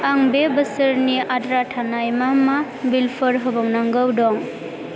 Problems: constant background noise